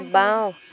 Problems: constant background noise